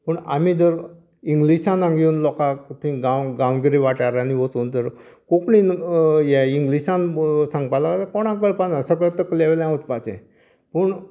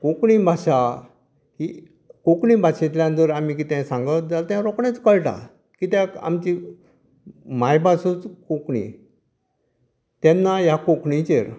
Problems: none marked